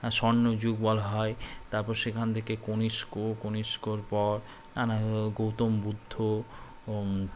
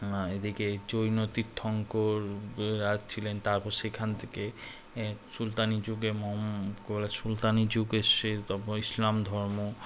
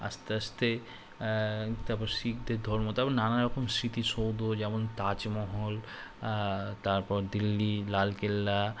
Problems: constant background noise